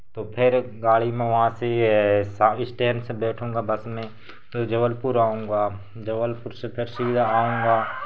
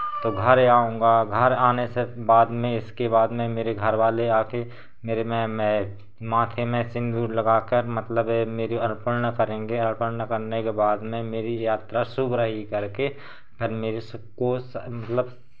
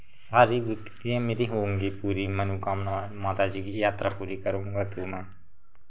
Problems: constant background noise